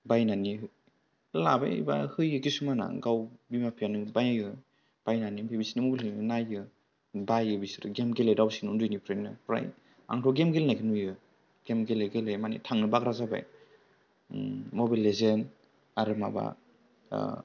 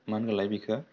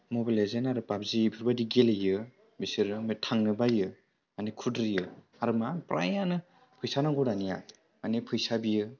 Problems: low volume